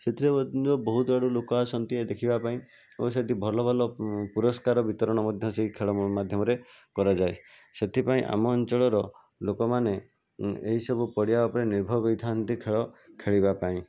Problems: constant background noise